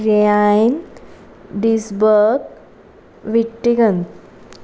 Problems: constant background noise